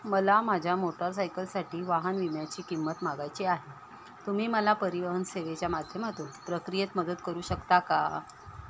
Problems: none marked